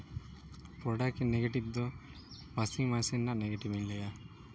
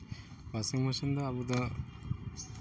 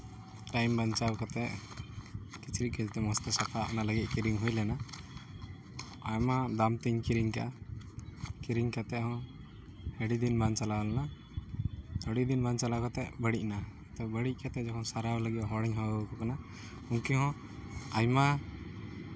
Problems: none marked